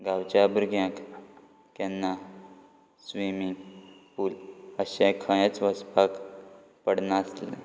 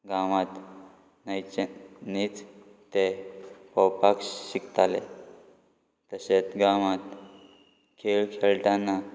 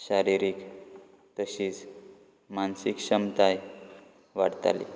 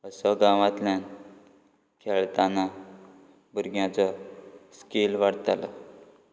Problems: background sounds at intervals